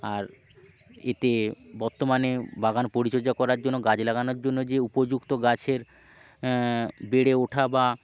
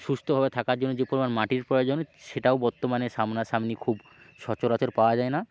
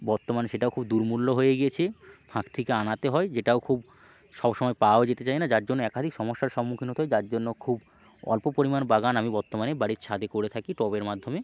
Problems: constant background noise, low volume